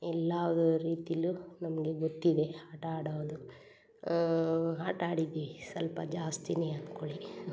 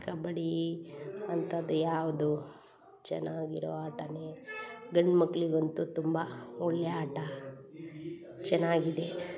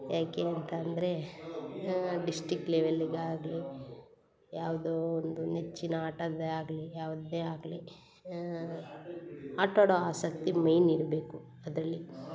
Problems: none marked